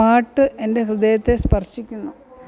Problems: background sounds at intervals